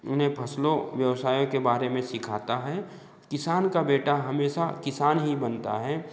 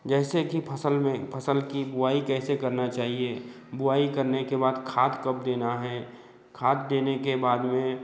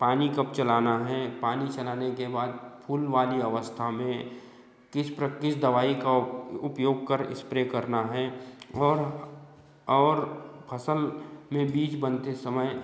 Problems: background sounds at intervals, background conversations at intervals